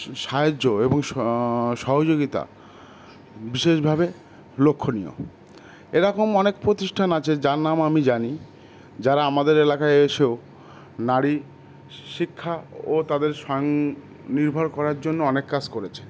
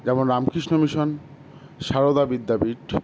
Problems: constant background noise